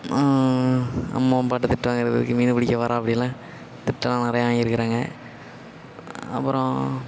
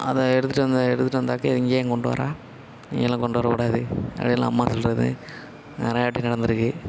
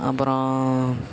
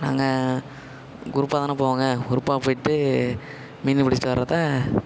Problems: constant background noise, echo